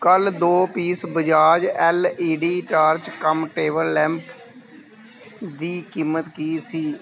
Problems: continuous background conversations